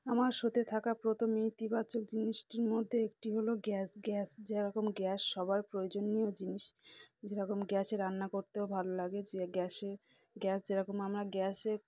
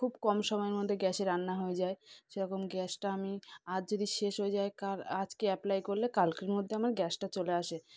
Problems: background conversations at intervals